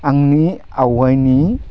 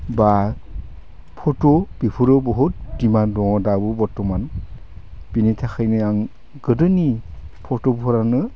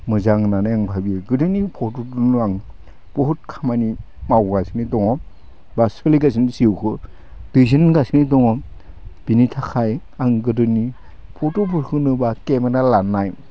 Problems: none marked